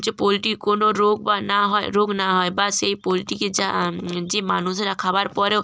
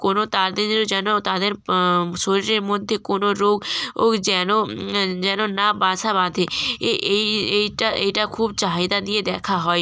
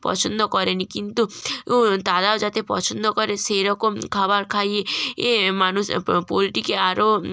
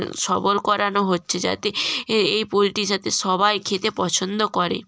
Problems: none marked